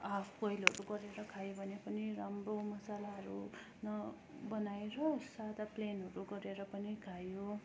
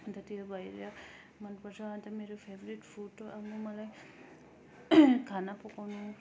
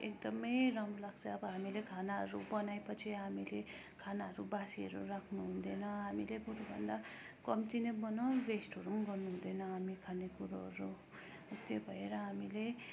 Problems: constant background noise, low volume